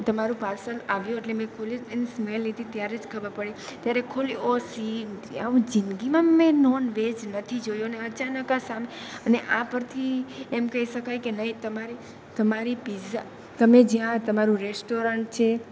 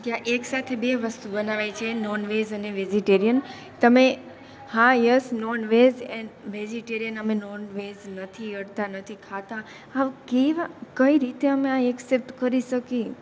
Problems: none marked